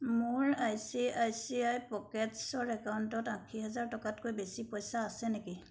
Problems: background sounds at intervals